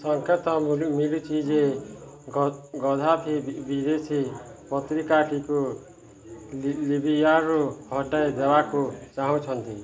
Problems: constant background noise, continuous background conversations